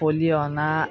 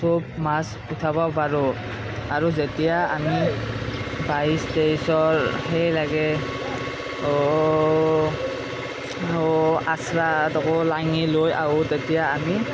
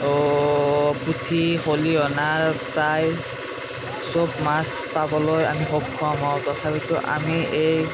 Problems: constant background noise